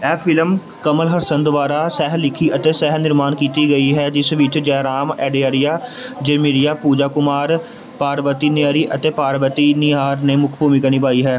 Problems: continuous background conversations